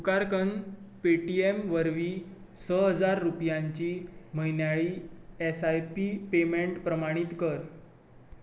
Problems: none marked